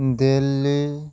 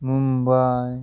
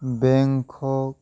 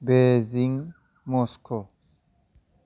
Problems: constant background noise